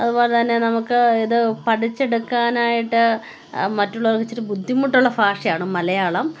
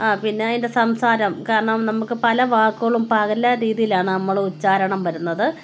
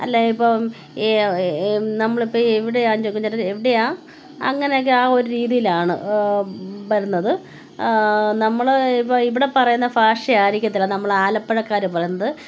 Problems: none marked